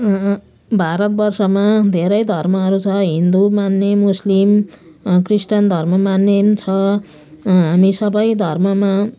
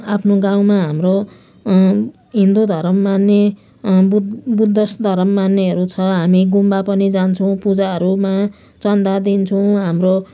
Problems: none marked